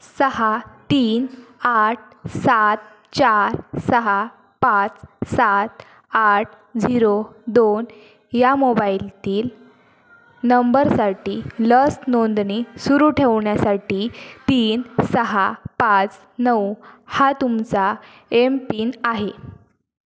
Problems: constant background noise, background conversations at intervals